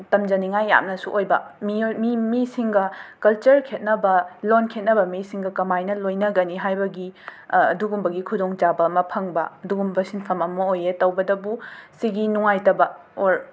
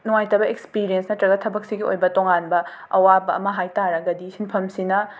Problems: background sounds at intervals